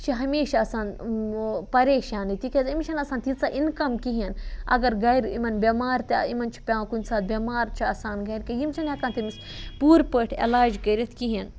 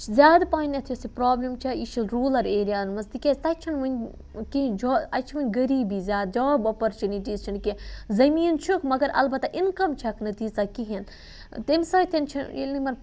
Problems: none marked